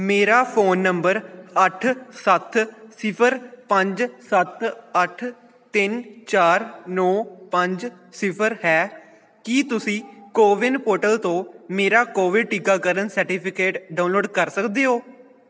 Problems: none marked